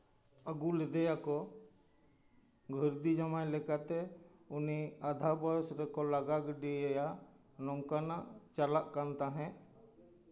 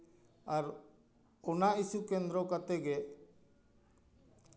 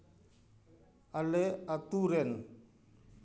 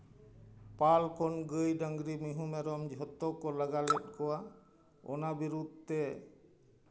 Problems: background sounds at intervals, continuous background conversations